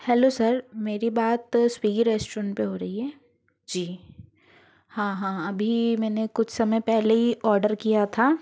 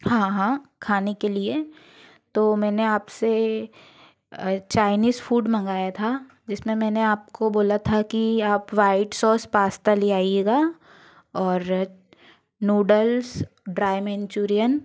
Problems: background sounds at intervals